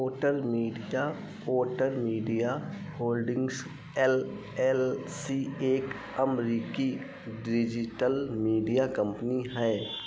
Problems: constant background noise